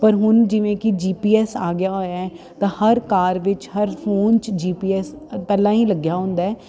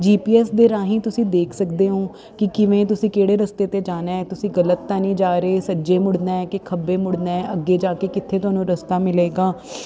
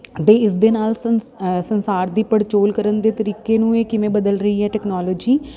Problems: background sounds at intervals